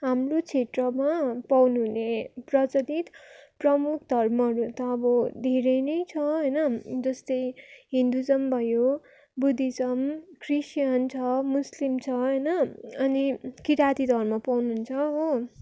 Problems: background sounds at intervals